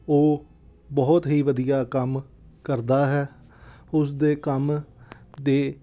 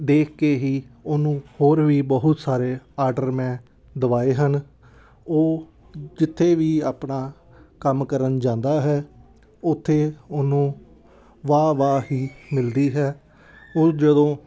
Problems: background sounds at intervals, background conversations at intervals